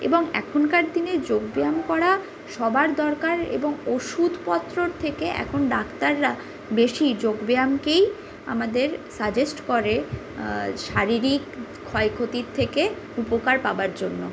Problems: constant background noise